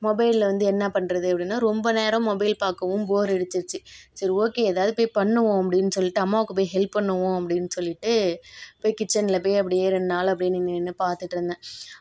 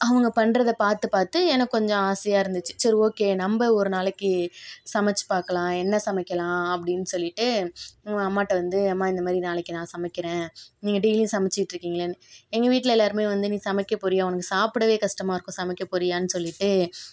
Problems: none marked